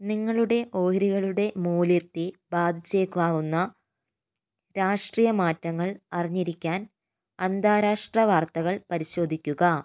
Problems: none marked